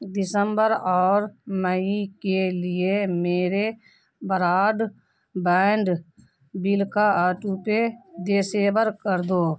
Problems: none marked